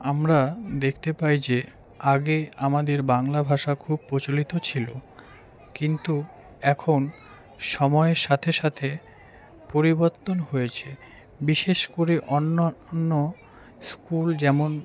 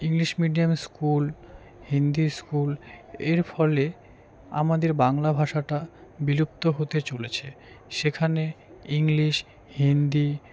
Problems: background sounds at intervals, continuous background conversations